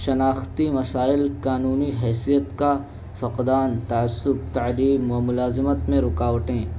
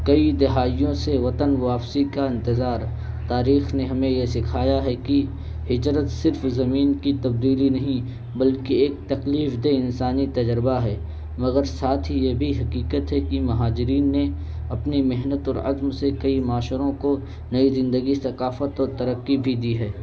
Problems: constant background noise